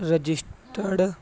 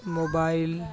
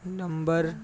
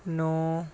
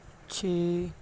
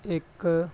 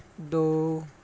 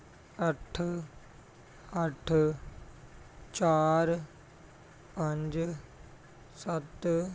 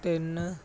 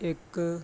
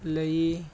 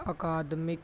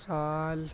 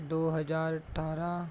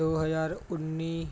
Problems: none marked